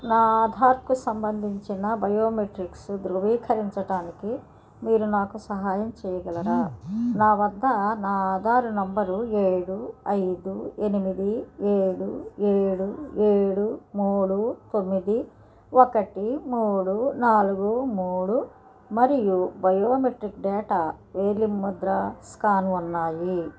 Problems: background sounds at intervals